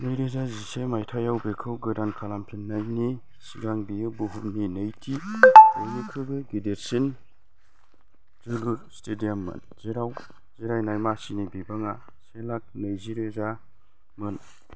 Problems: background sounds at intervals